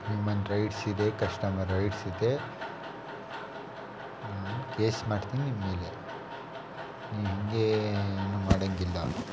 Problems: constant background noise